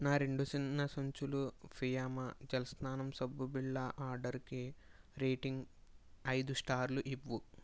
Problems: low volume